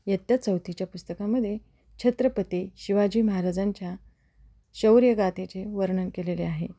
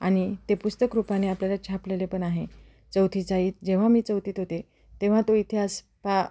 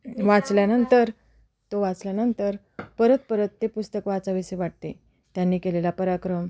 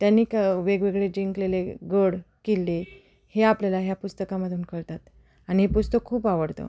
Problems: background sounds at intervals, background conversations at intervals